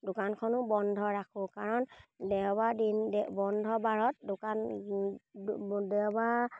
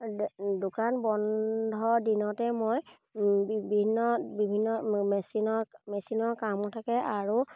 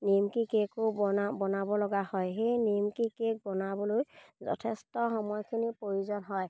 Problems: none marked